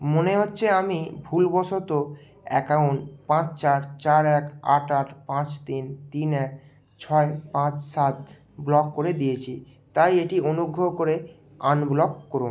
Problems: background sounds at intervals